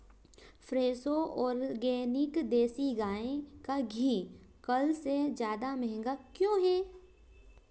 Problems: background sounds at intervals